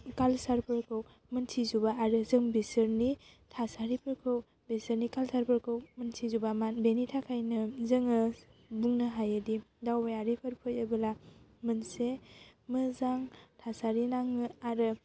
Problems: constant background noise